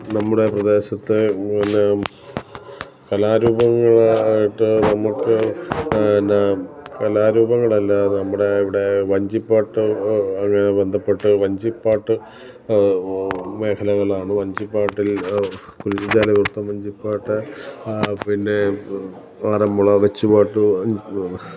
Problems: background sounds at intervals